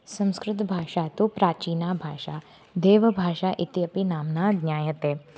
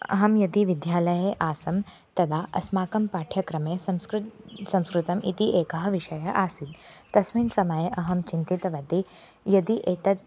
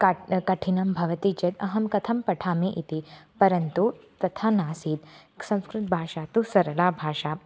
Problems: constant background noise